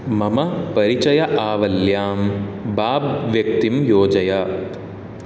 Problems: none marked